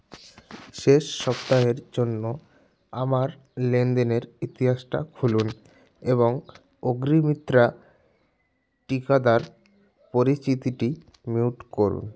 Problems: background sounds at intervals